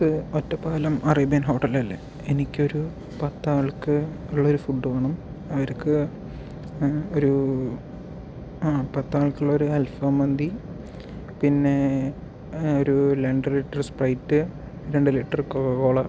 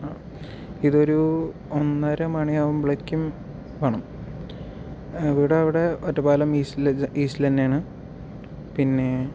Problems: background sounds at intervals, low volume